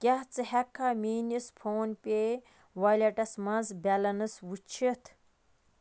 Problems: constant background noise